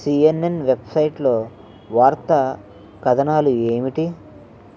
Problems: none marked